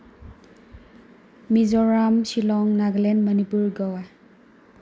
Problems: background sounds at intervals